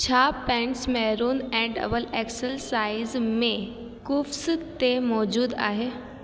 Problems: constant background noise, echo